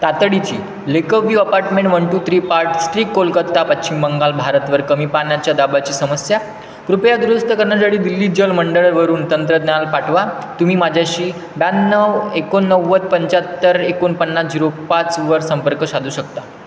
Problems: constant background noise